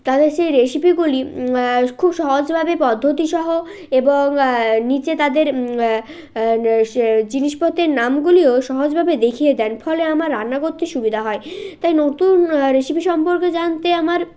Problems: background sounds at intervals, continuous background conversations